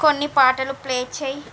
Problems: constant background noise